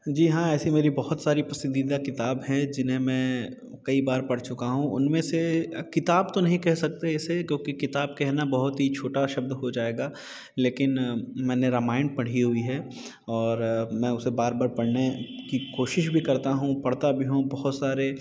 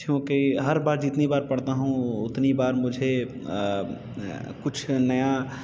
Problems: background sounds at intervals